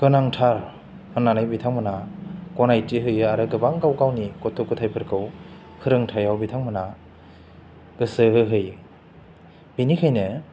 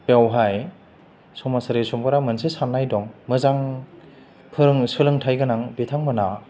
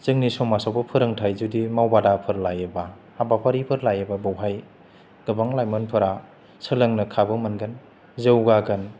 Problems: low volume